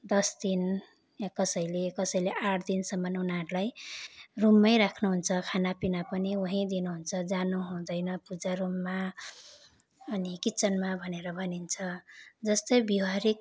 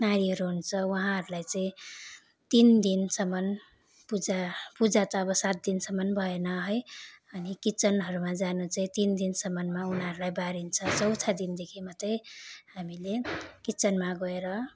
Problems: none marked